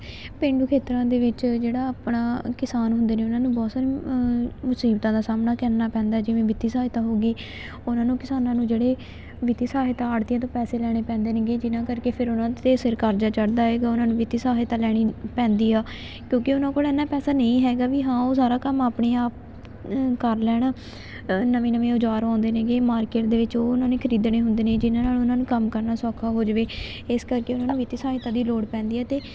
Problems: constant background noise